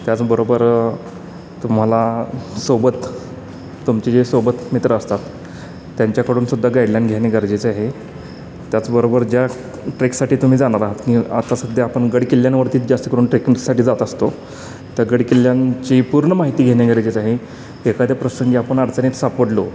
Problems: constant background noise